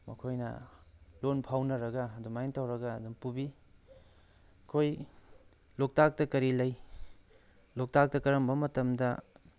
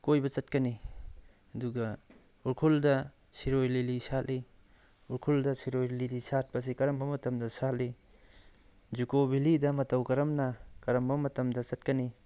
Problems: none marked